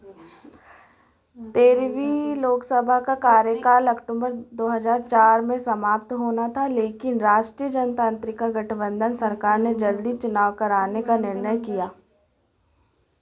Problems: background conversations at intervals